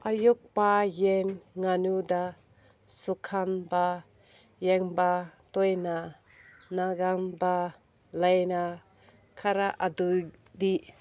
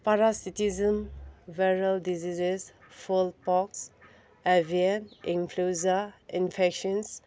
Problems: none marked